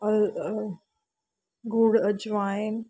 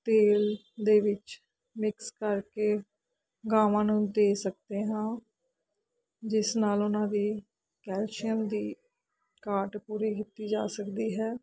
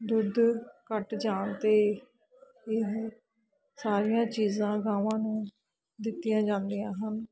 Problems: none marked